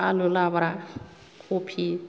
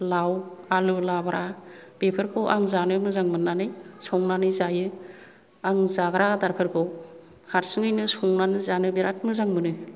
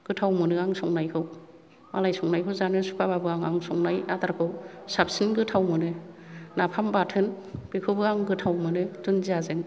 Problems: none marked